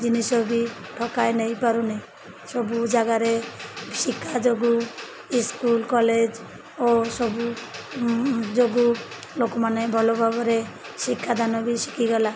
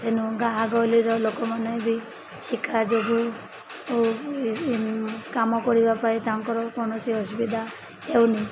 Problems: constant background noise